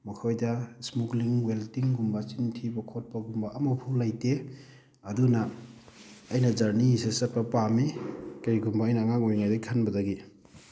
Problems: background sounds at intervals